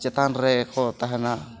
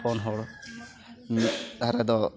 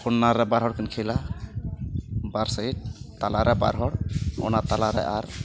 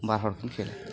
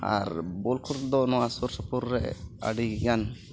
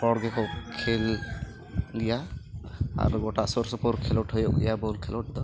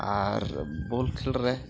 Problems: background sounds at intervals, background conversations at intervals